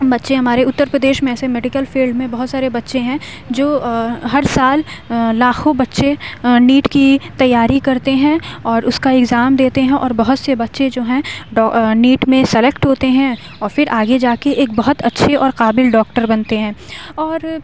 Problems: none marked